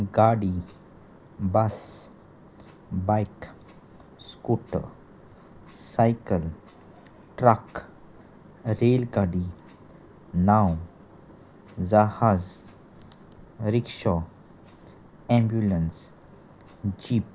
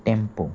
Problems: none marked